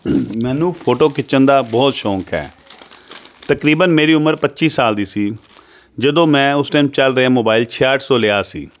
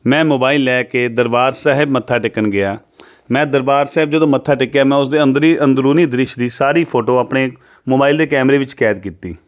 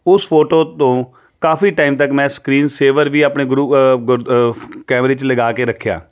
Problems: none marked